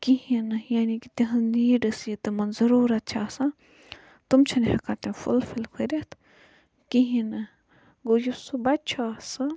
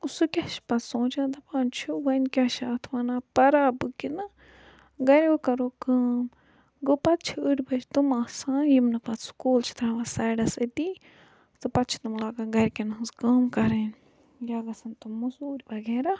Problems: low volume